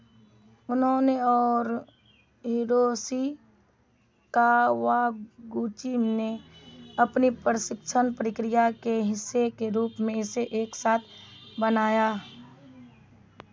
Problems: none marked